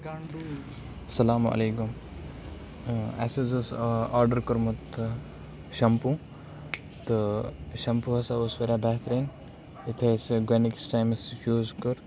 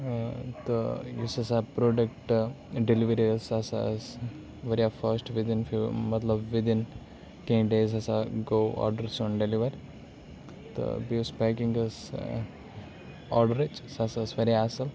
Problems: background sounds at intervals